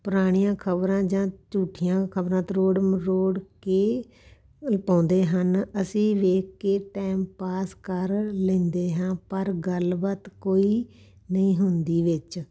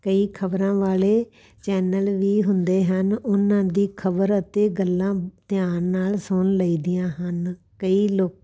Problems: none marked